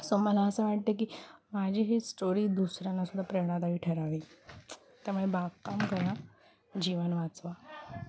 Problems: background sounds at intervals, background conversations at intervals